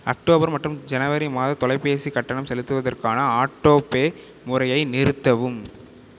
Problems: none marked